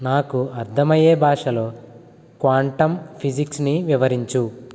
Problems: none marked